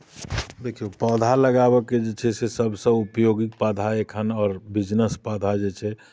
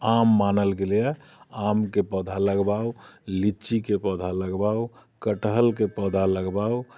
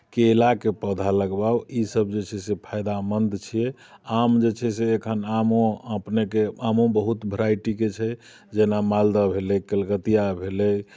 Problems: none marked